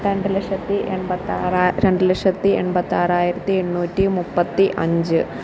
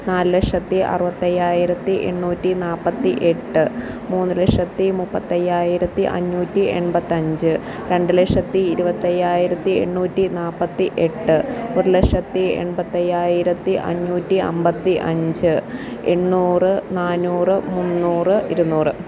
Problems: constant background noise